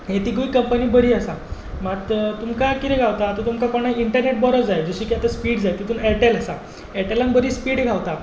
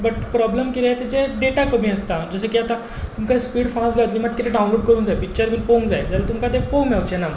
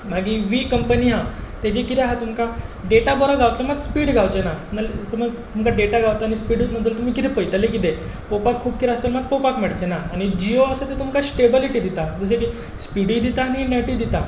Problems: background sounds at intervals